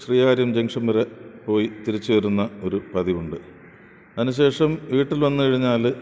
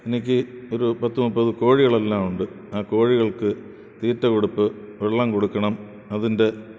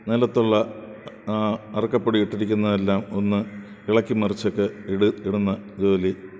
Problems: background sounds at intervals